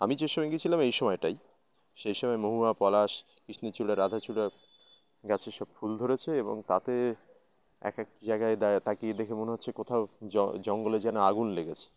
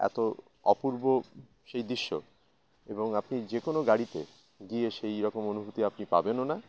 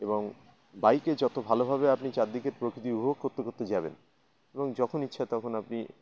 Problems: constant background noise, continuous background conversations